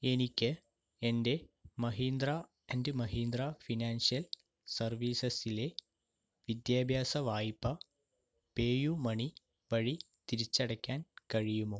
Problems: low volume